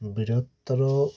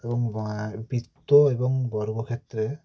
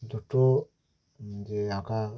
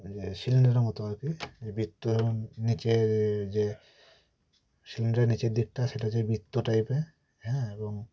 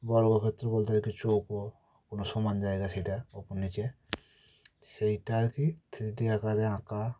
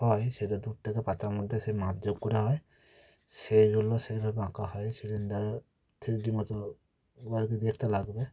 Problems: none marked